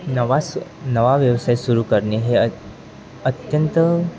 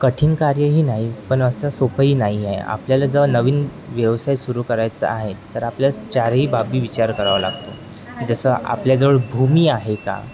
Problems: constant background noise, continuous background conversations